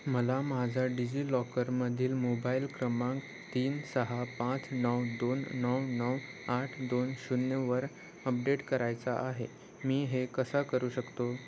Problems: constant background noise